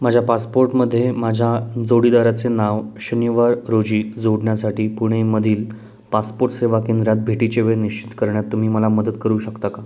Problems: background sounds at intervals